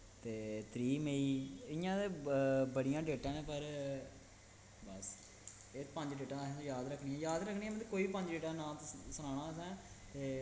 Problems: constant background noise